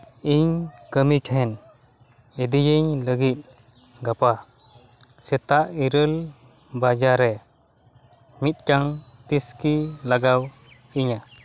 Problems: none marked